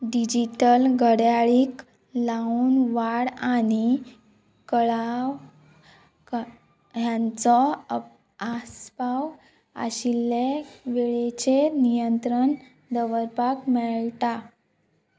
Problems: none marked